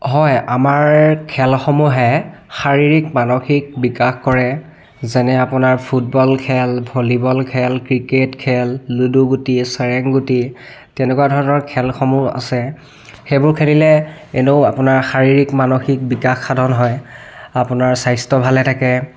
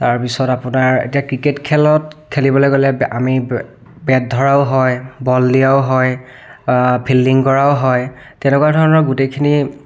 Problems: background sounds at intervals, background conversations at intervals